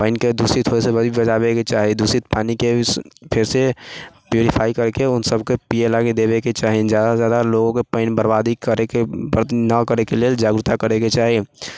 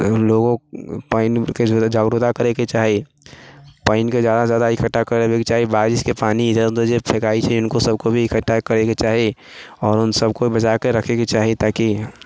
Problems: none marked